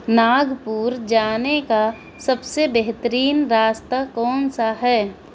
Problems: constant background noise